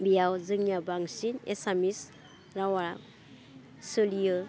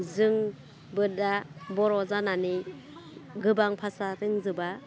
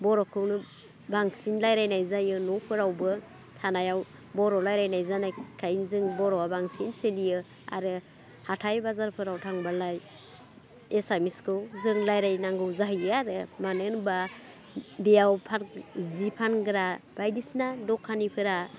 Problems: constant background noise